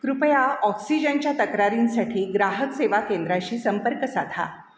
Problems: none marked